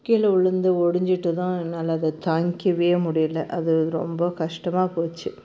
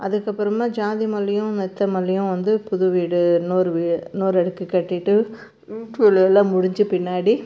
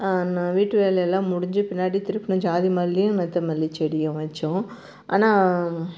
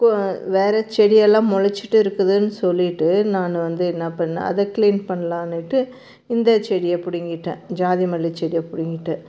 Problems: constant background noise